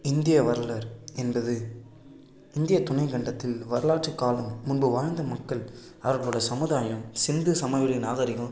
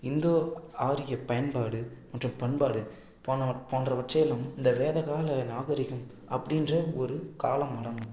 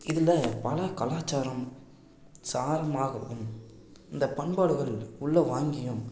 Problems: background sounds at intervals